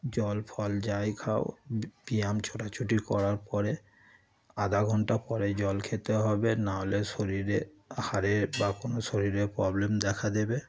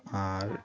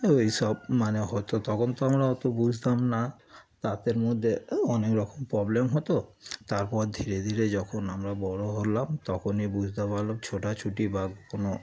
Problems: background sounds at intervals, continuous background conversations